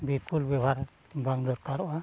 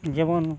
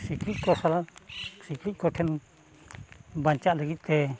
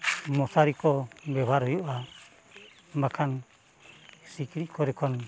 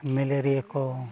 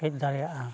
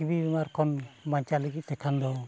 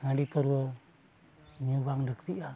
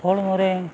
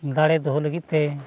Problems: background sounds at intervals, continuous background conversations